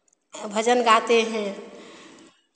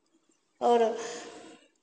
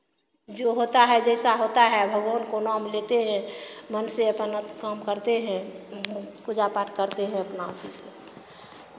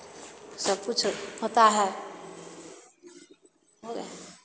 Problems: constant background noise